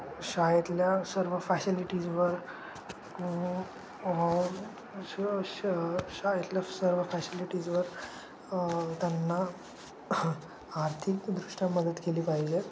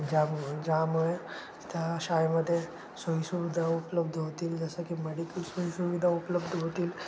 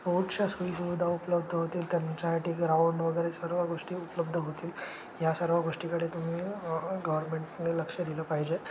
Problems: constant background noise